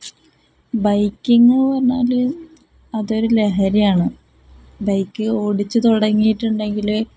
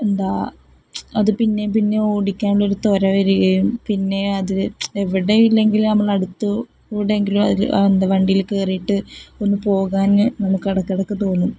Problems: none marked